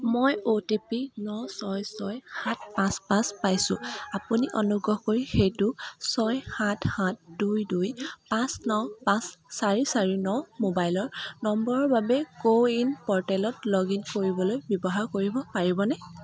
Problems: constant background noise